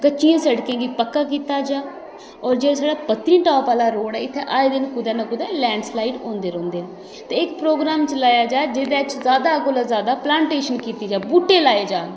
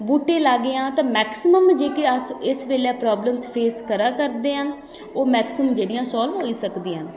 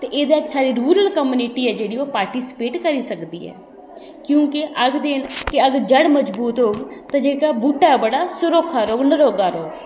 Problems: background sounds at intervals, echo